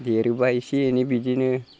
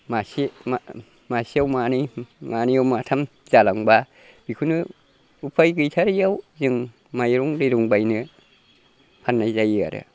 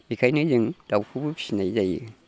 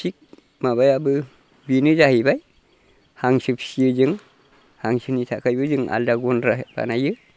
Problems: constant background noise